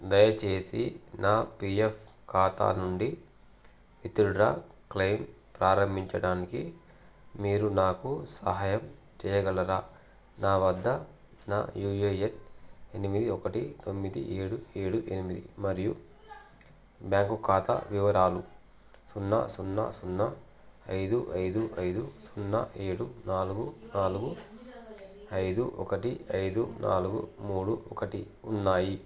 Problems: none marked